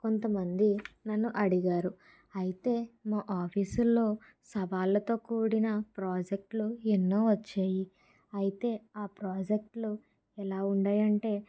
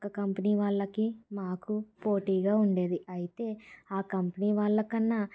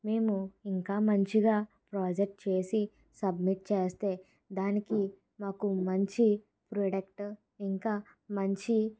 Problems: none marked